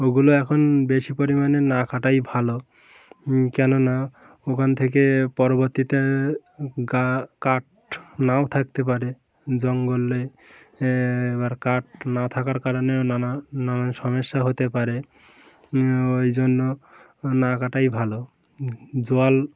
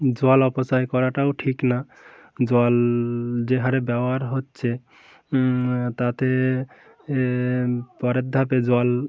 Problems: constant background noise, background conversations at intervals